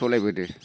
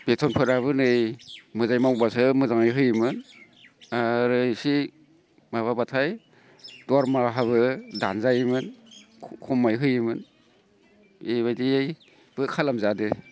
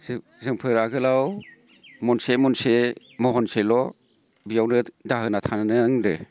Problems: constant background noise